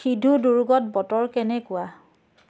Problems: none marked